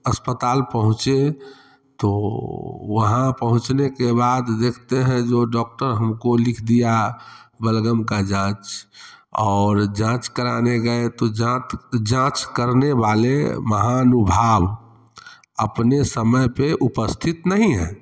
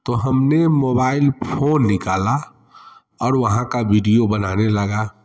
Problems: constant background noise